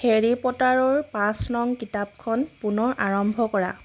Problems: constant background noise